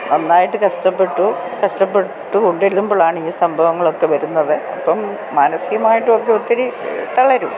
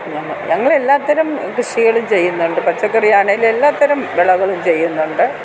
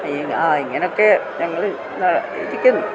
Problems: constant background noise